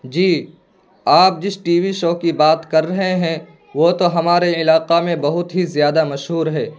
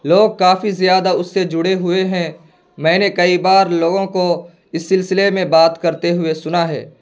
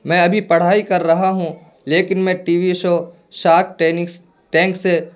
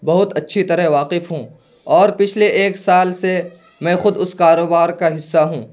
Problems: constant background noise